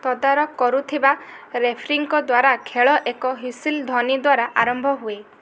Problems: constant background noise